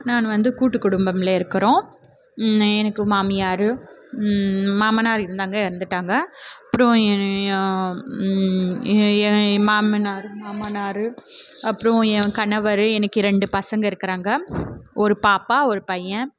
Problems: none marked